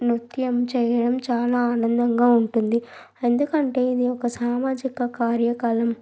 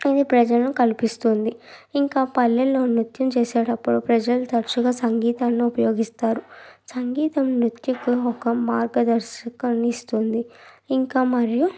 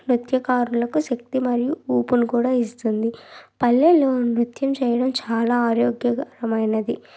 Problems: background sounds at intervals